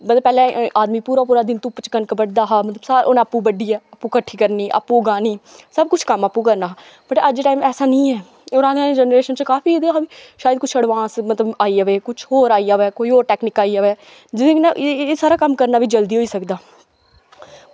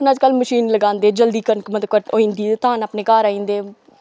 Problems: none marked